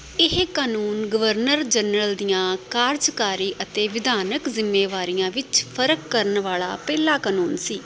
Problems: constant background noise